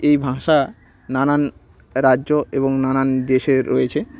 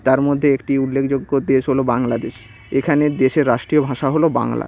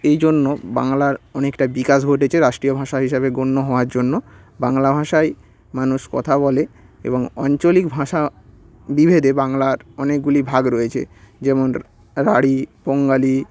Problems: constant background noise, background conversations at intervals